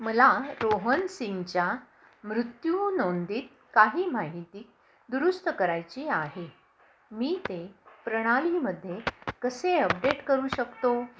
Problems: none marked